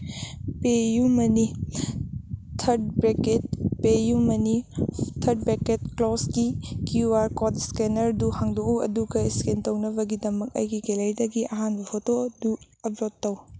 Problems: background sounds at intervals